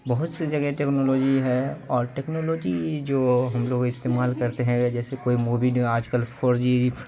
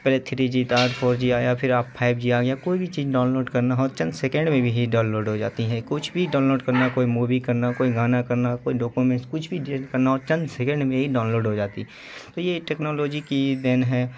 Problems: constant background noise